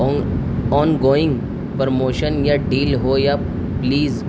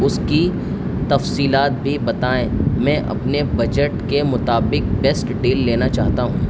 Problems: constant background noise